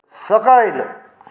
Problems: constant background noise